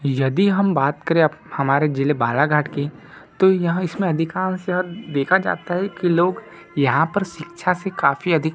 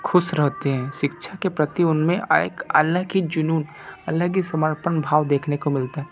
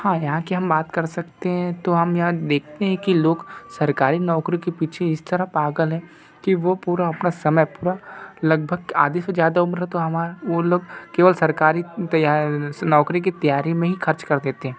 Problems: background sounds at intervals